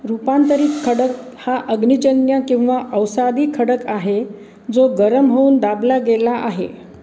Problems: none marked